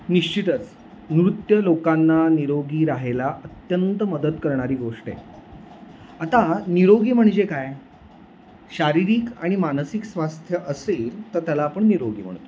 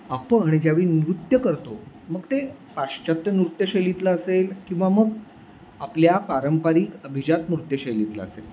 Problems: constant background noise